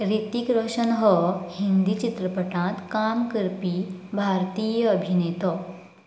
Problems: background sounds at intervals